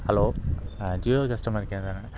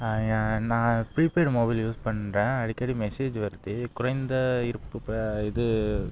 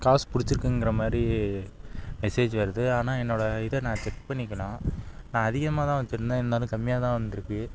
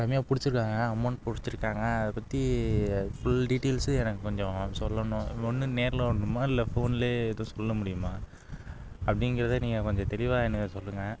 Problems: background sounds at intervals